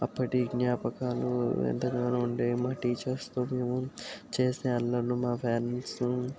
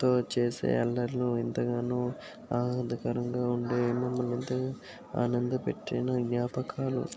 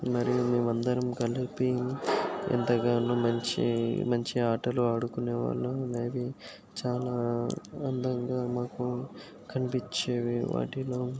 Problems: constant background noise